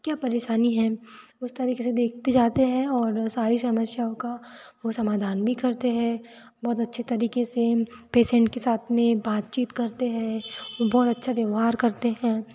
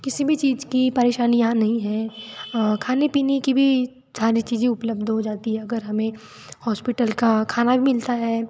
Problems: none marked